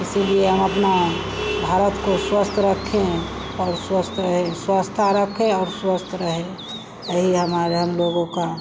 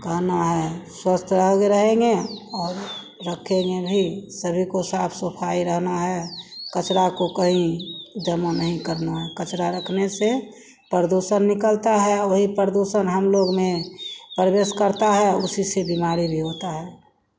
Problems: constant background noise